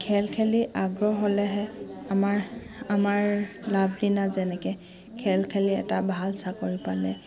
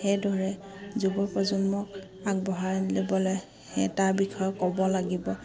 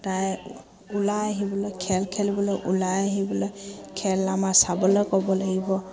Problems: background sounds at intervals, background conversations at intervals